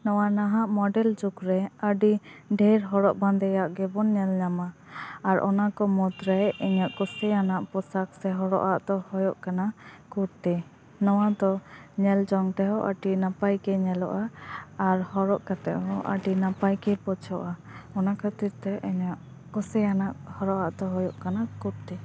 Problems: background sounds at intervals